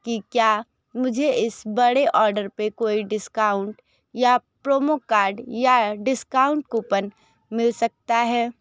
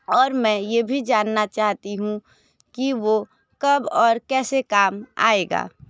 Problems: background conversations at intervals